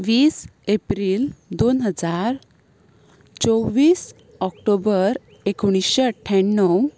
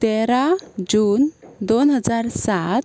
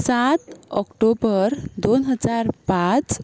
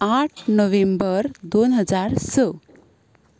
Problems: constant background noise